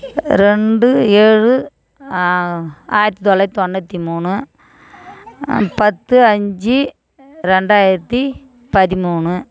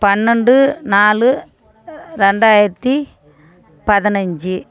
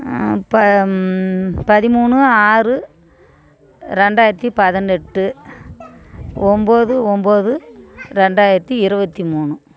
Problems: background conversations at intervals